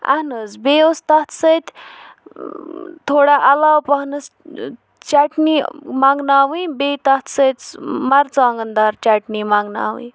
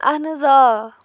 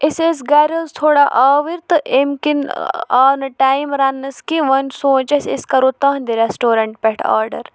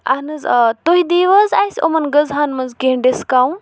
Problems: background sounds at intervals